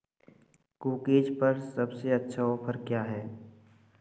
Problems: constant background noise